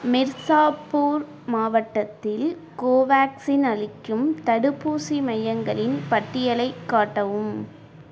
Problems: constant background noise